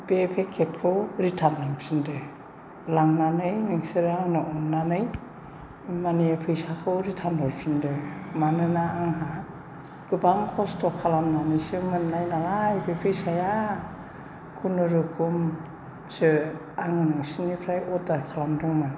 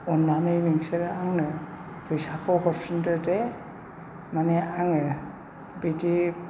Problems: none marked